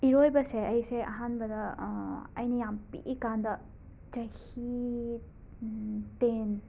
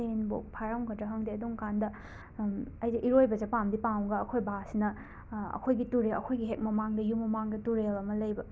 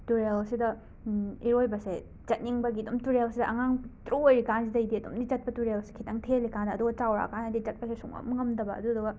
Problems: background sounds at intervals